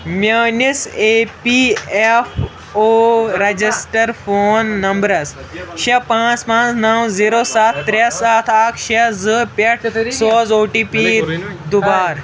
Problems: constant background noise, continuous background conversations